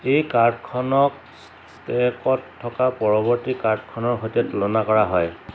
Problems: none marked